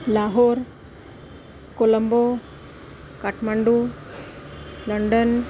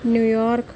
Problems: constant background noise